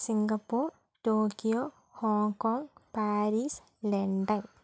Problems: low volume